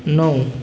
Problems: background sounds at intervals